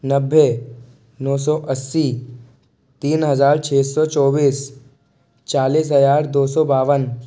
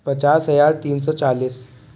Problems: none marked